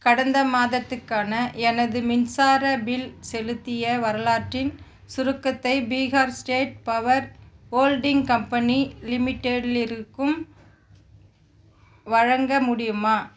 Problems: background sounds at intervals